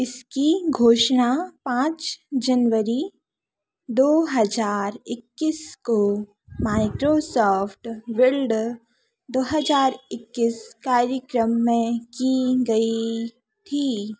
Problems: none marked